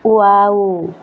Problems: constant background noise